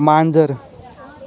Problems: background sounds at intervals, background conversations at intervals